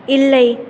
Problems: constant background noise